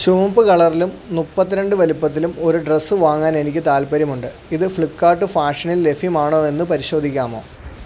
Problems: none marked